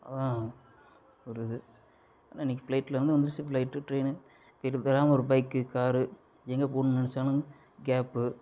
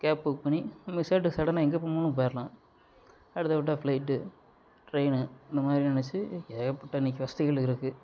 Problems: low volume